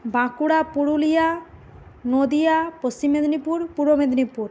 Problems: constant background noise